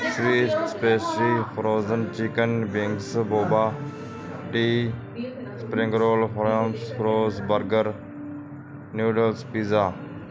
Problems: constant background noise